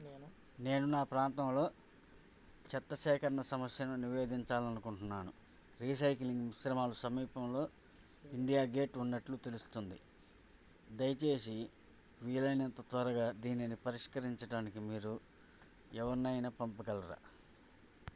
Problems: low volume